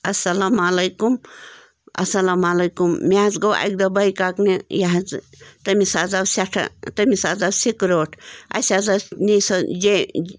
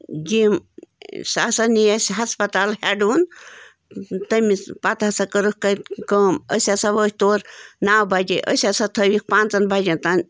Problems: background sounds at intervals